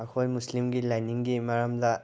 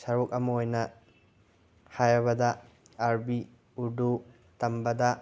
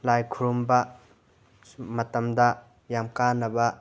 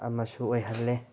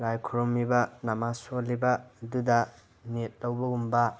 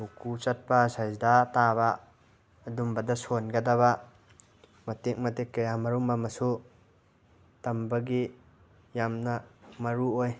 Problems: constant background noise